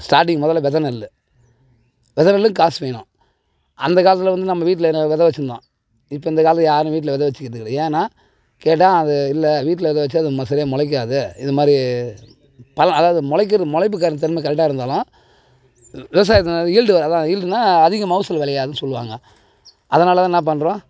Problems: none marked